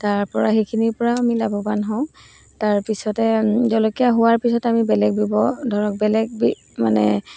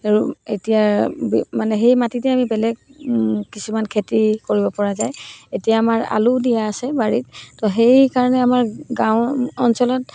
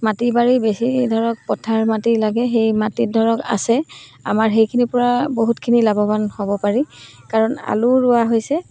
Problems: background sounds at intervals